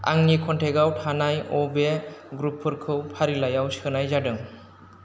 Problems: none marked